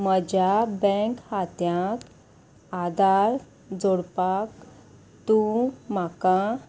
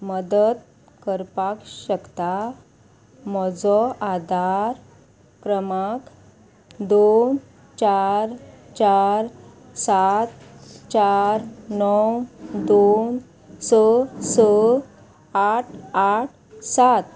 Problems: constant background noise